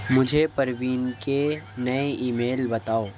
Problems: constant background noise, low volume